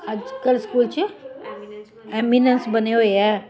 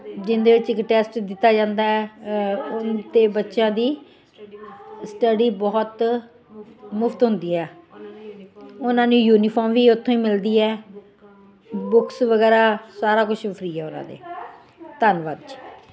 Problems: continuous background conversations